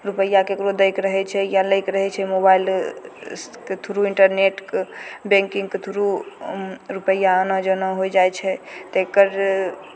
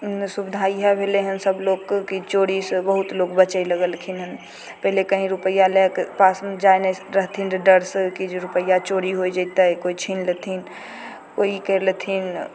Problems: none marked